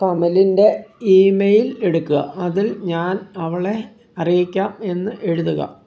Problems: background sounds at intervals